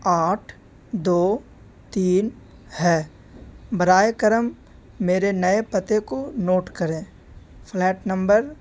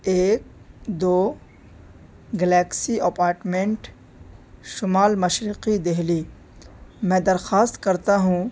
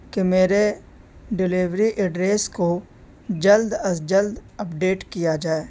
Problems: constant background noise